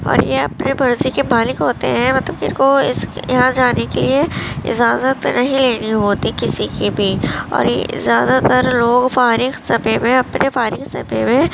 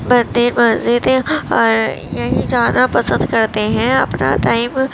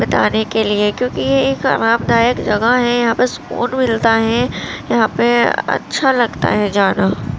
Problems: constant background noise